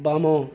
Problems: constant background noise